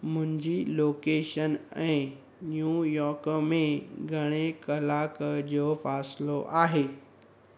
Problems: constant background noise